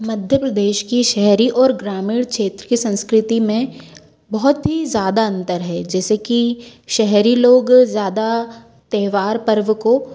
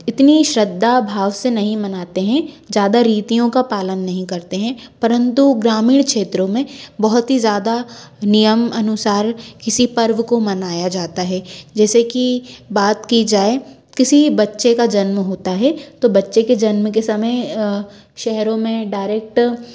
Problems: constant background noise